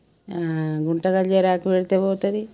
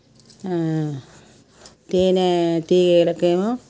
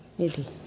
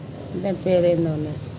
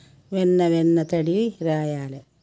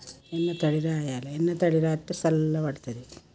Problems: background sounds at intervals